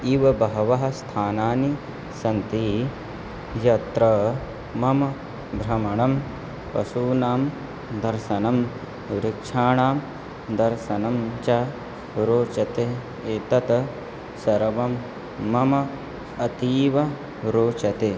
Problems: constant background noise